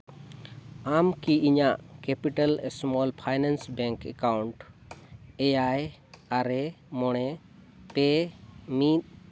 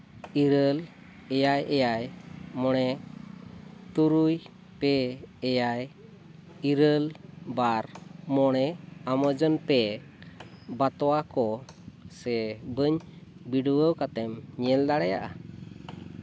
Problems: constant background noise